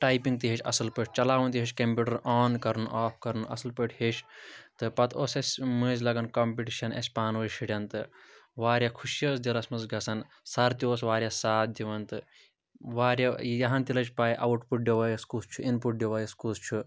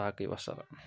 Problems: none marked